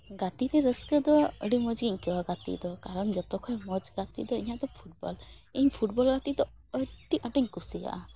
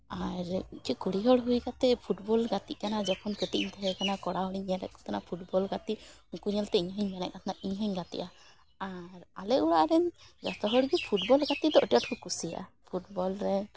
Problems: background sounds at intervals